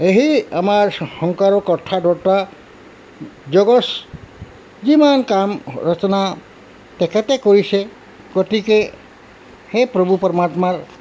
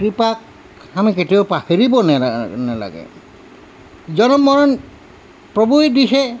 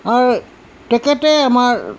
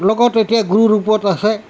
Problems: constant background noise